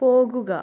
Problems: low volume